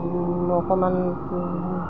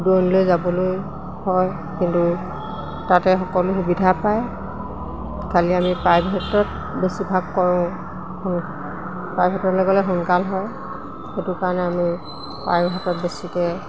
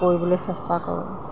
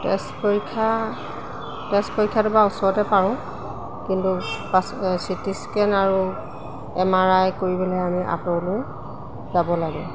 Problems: constant background noise